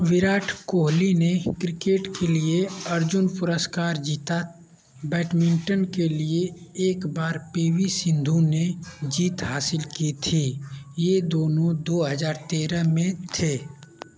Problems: none marked